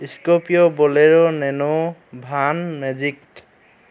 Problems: none marked